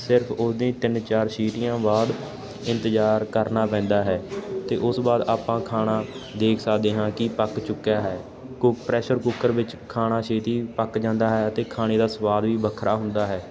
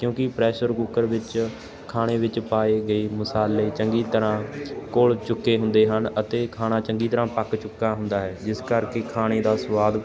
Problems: constant background noise